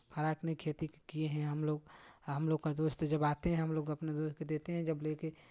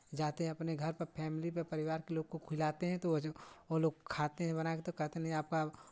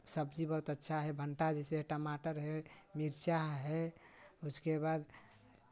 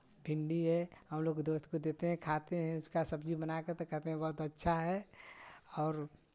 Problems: none marked